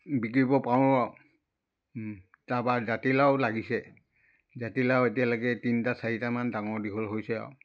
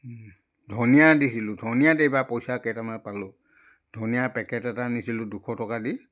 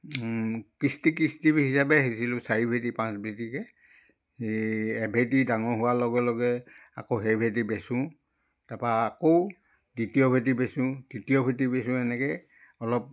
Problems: none marked